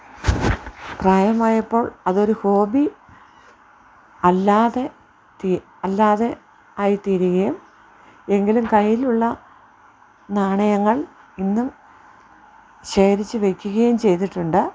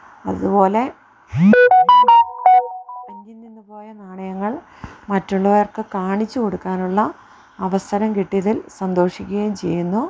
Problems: background sounds at intervals